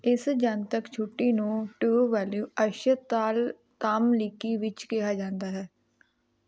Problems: constant background noise